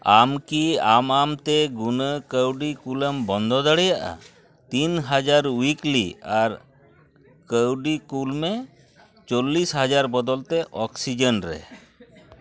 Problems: background sounds at intervals, continuous background conversations